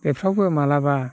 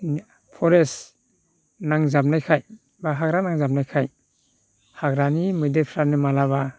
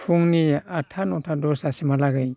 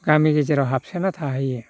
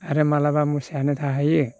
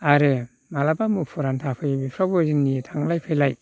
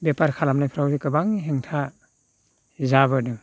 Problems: constant background noise